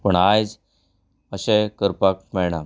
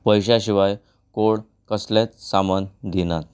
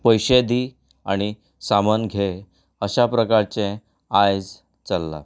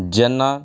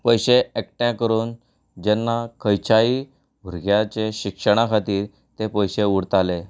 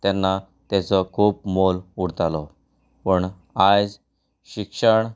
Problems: none marked